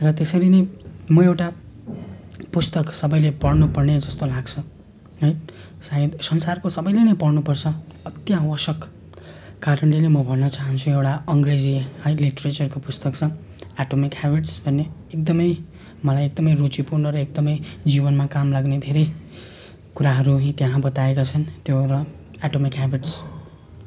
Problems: constant background noise